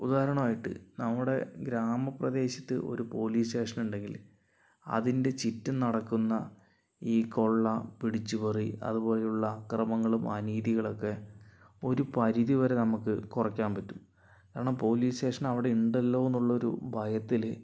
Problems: low volume